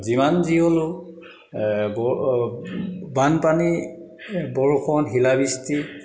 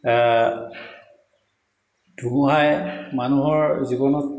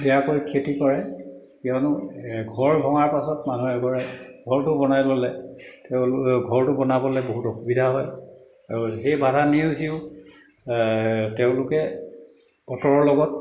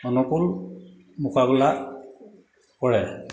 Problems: background sounds at intervals, echo